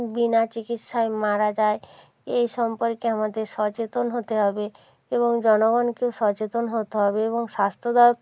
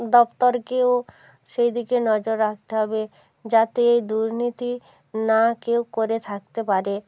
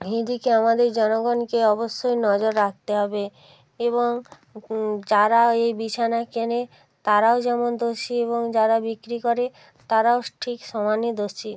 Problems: background sounds at intervals